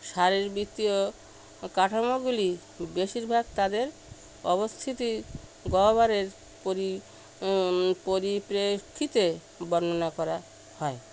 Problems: constant background noise